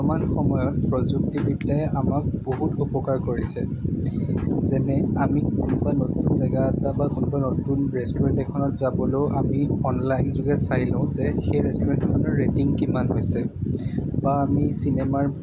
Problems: constant background noise